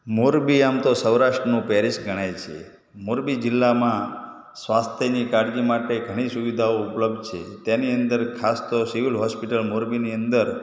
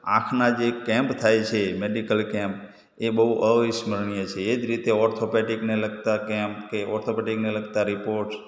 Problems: echo